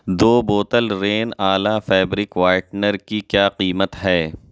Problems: none marked